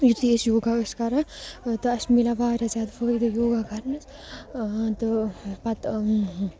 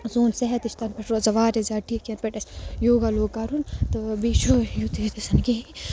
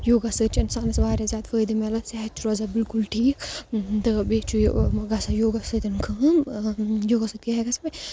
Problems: constant background noise